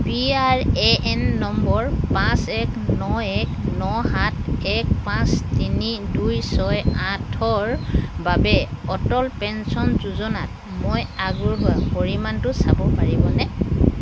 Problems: constant background noise